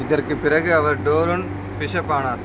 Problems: constant background noise